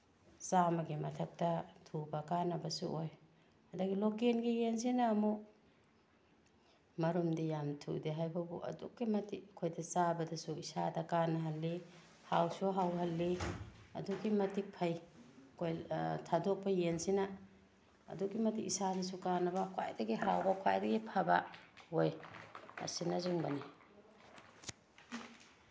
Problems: background sounds at intervals